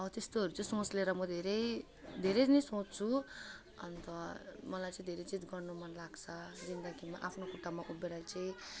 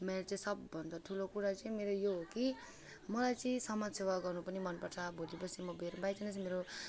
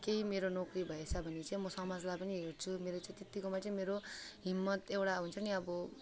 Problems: background sounds at intervals